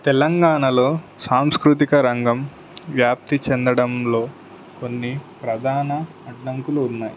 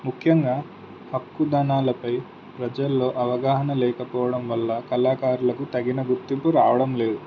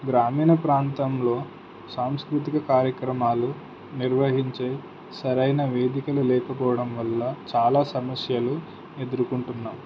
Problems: none marked